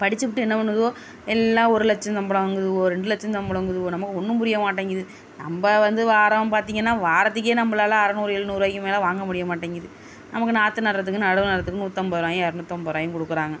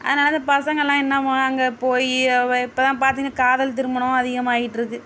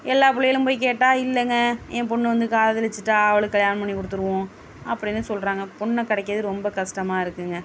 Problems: none marked